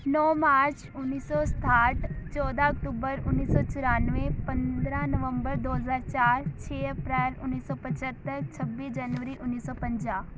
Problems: background sounds at intervals